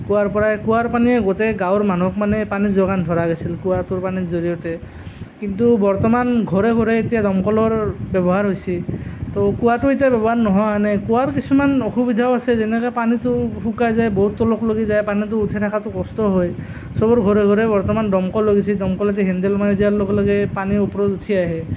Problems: constant background noise